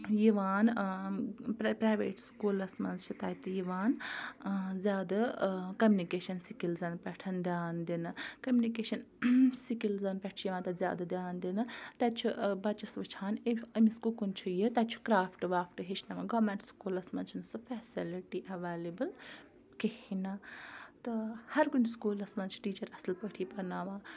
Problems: background sounds at intervals, background conversations at intervals